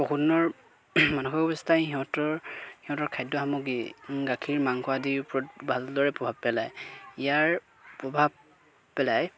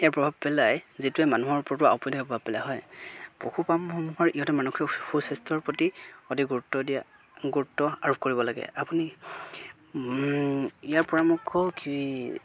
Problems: background sounds at intervals, continuous background conversations